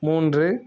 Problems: background sounds at intervals